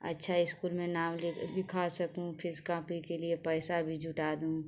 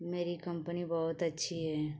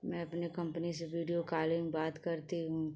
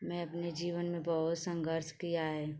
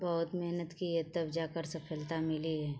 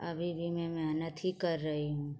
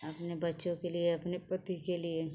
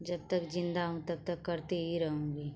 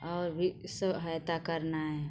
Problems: constant background noise